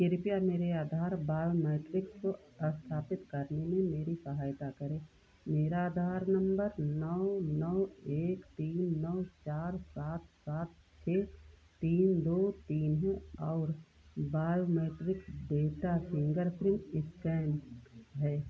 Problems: none marked